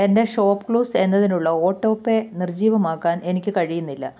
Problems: none marked